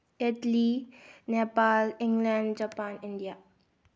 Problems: low volume